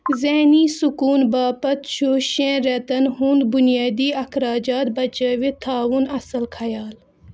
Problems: background sounds at intervals